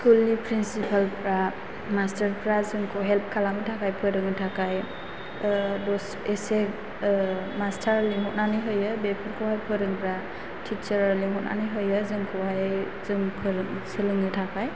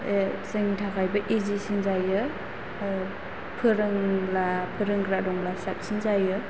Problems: constant background noise